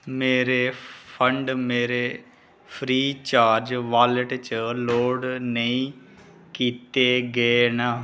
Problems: none marked